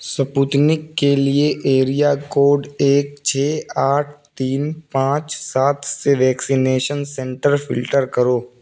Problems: constant background noise